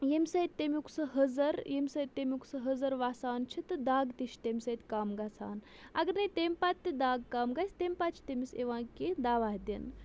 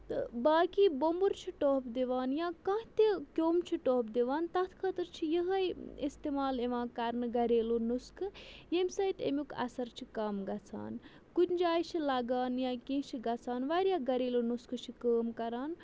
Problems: none marked